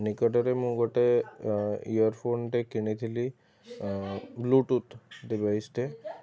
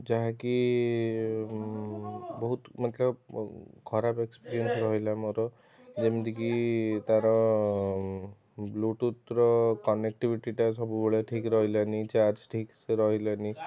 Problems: constant background noise, continuous background conversations